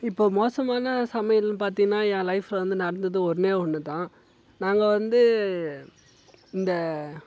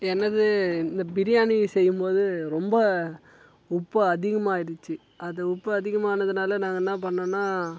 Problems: background sounds at intervals